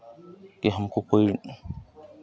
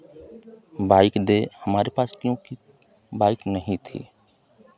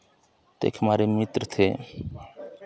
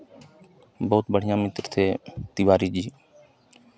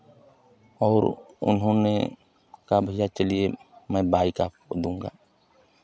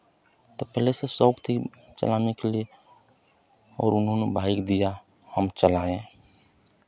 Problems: constant background noise, background conversations at intervals